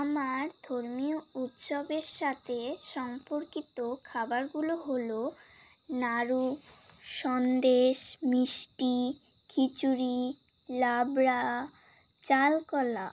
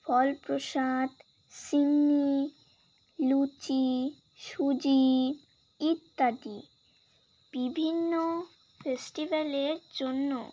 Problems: background sounds at intervals